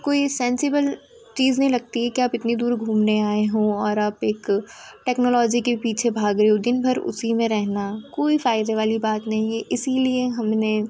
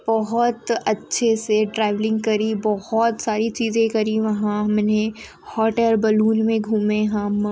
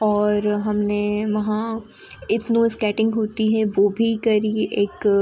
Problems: constant background noise